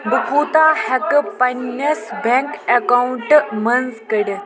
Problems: constant background noise